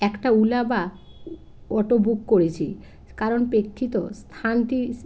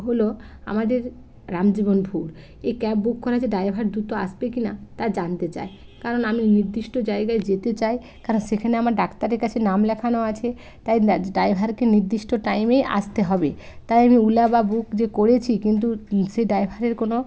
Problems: constant background noise